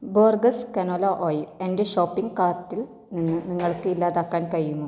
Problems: low volume